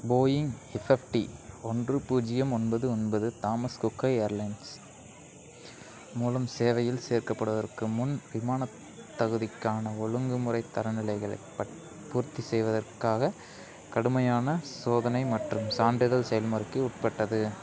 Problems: background sounds at intervals